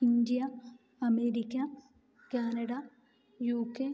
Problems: low volume